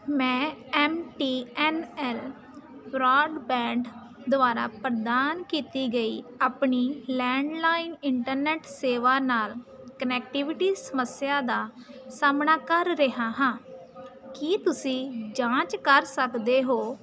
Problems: constant background noise